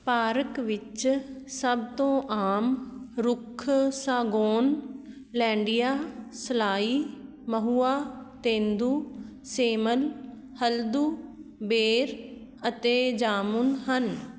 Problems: none marked